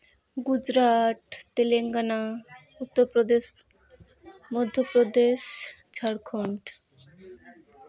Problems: background sounds at intervals, continuous background conversations